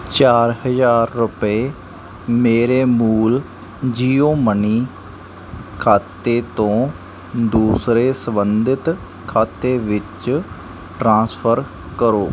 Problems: background sounds at intervals